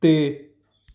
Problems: none marked